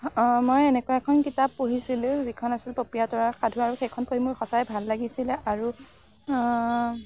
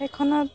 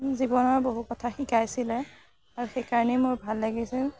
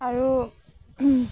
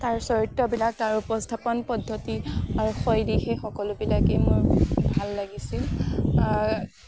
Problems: background sounds at intervals